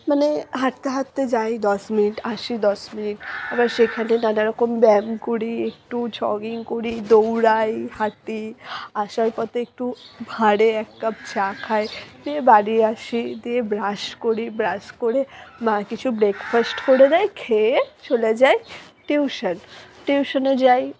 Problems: background sounds at intervals